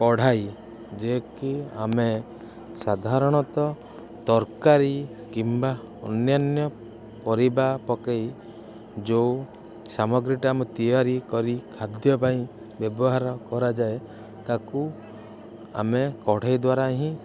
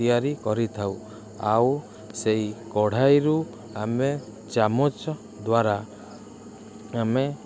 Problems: constant background noise